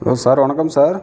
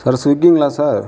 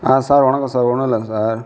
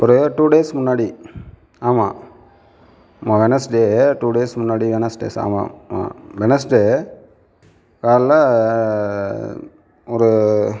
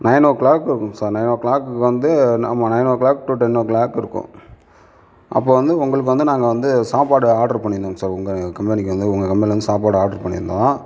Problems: none marked